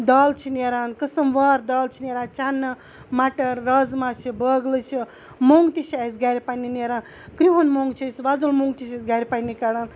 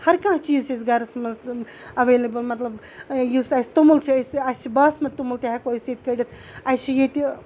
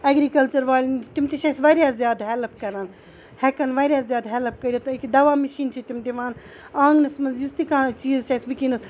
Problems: none marked